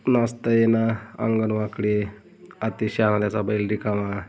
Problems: none marked